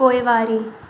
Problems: constant background noise, echo